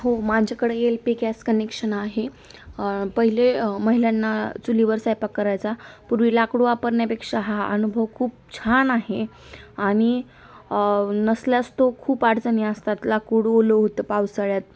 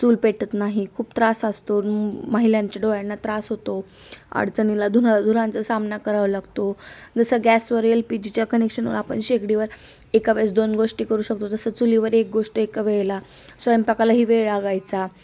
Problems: background sounds at intervals